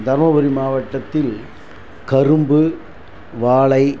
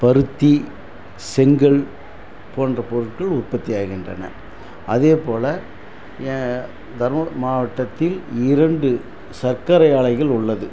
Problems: constant background noise